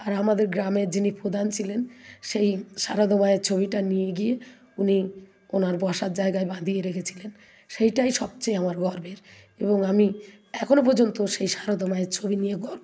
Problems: background sounds at intervals